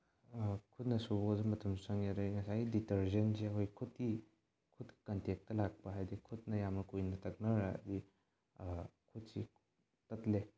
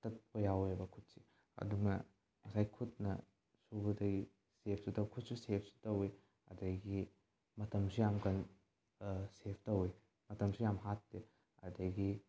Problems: low volume